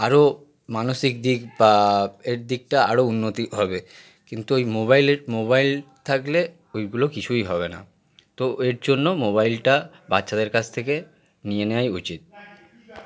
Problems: background sounds at intervals, continuous background conversations